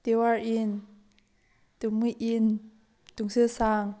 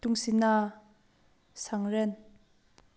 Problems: background sounds at intervals